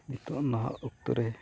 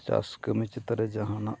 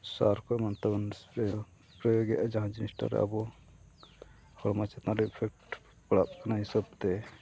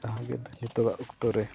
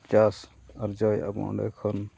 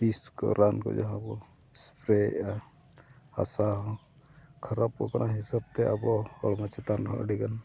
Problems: none marked